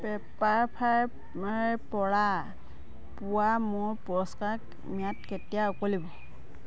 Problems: constant background noise